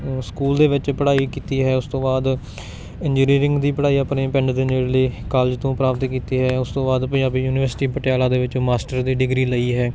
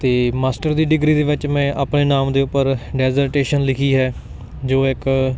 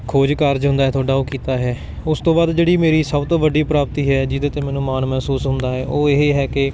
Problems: none marked